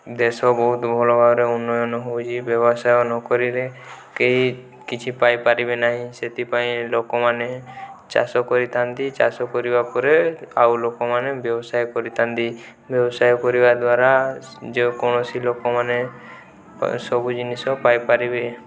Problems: background conversations at intervals